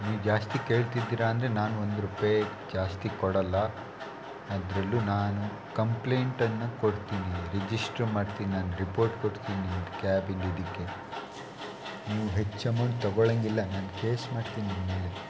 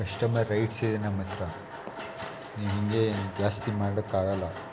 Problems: constant background noise